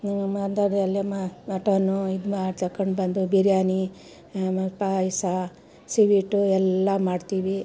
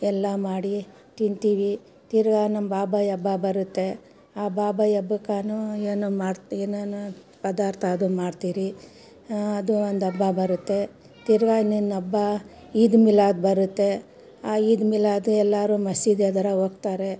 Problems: background conversations at intervals